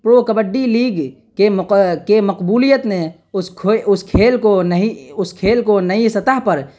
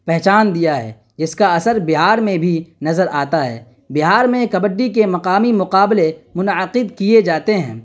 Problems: none marked